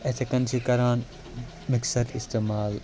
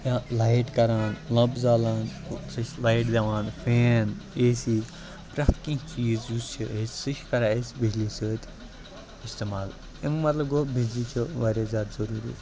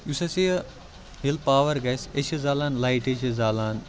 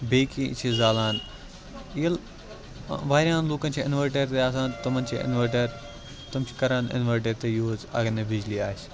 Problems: constant background noise, continuous background conversations